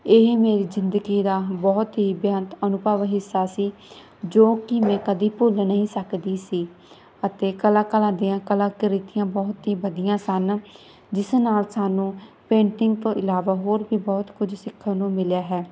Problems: none marked